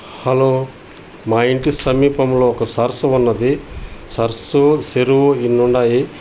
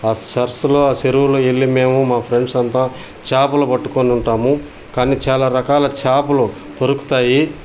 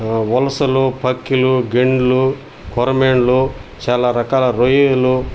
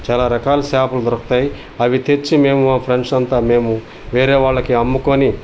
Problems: none marked